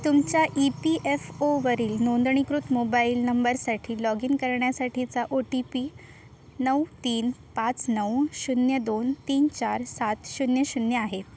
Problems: none marked